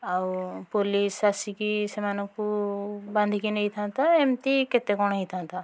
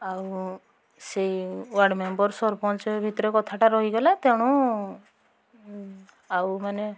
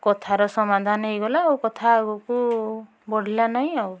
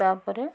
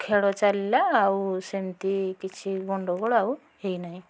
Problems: none marked